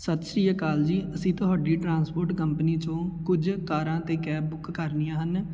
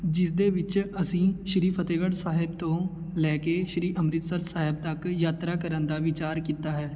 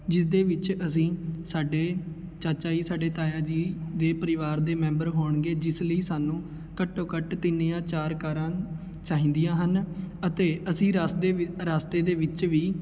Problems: none marked